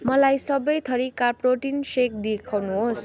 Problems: none marked